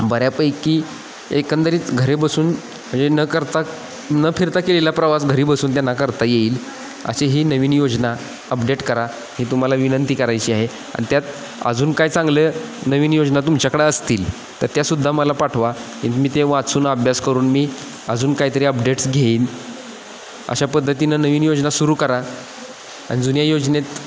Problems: constant background noise, echo